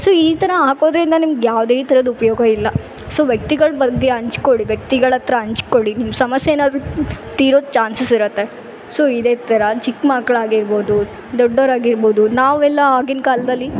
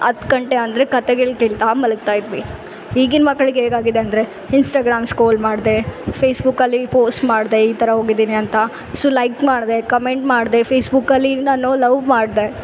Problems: background sounds at intervals